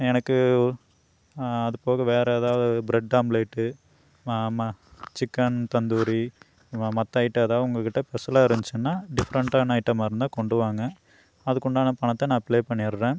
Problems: none marked